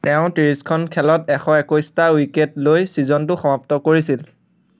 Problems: constant background noise